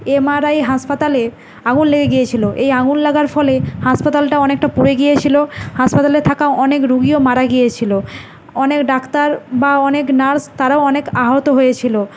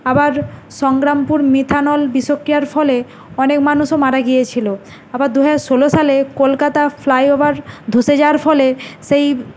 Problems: none marked